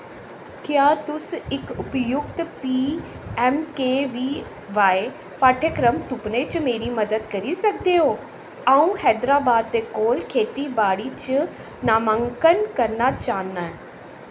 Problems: constant background noise, echo